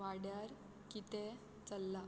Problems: none marked